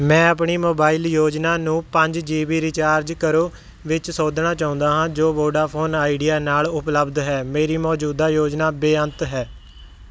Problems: background sounds at intervals